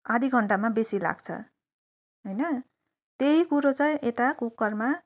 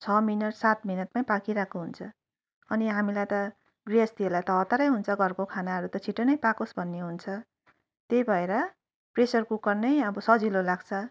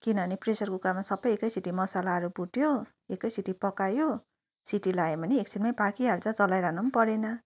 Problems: none marked